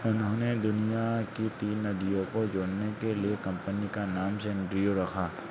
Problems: constant background noise